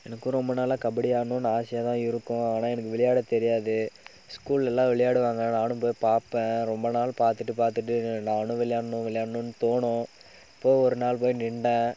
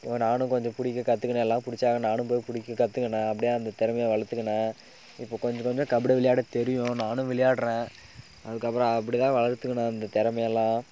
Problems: background sounds at intervals